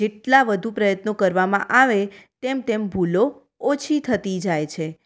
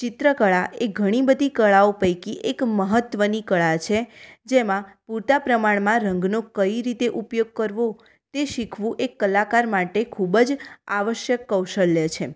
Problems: none marked